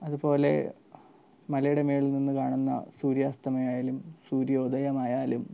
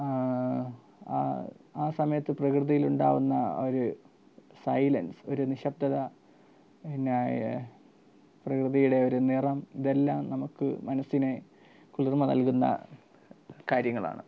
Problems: none marked